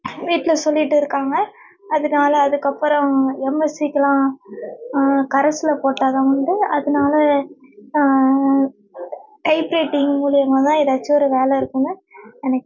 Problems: background sounds at intervals